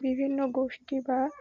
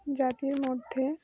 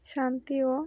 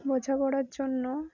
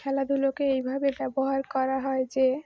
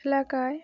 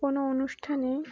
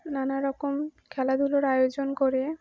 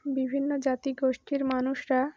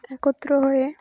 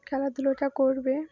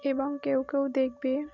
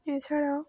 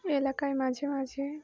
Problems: background sounds at intervals